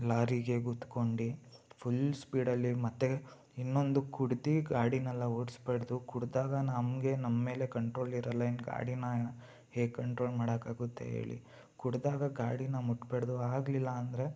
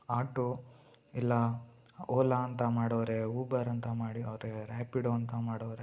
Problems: none marked